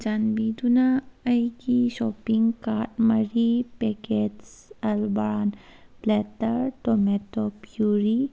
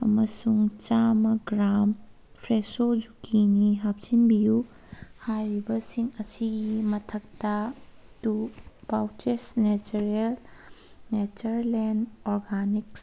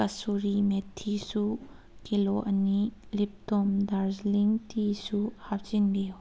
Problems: background sounds at intervals